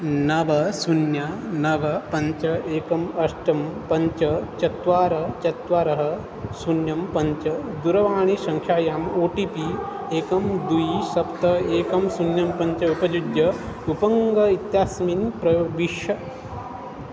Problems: constant background noise